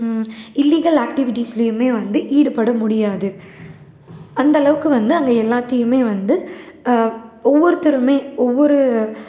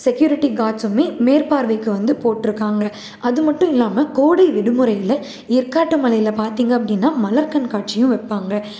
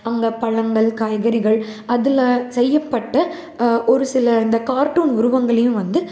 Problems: none marked